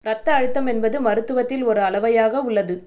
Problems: none marked